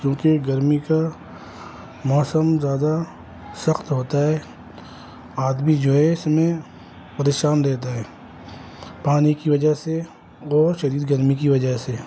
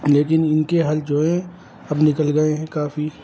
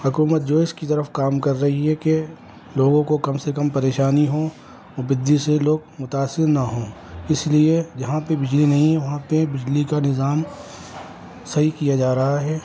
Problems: constant background noise